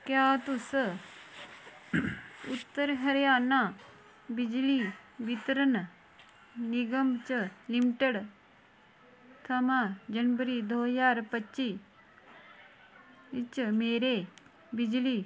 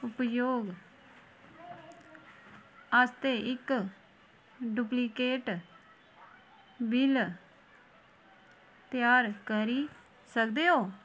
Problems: constant background noise